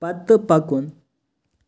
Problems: background sounds at intervals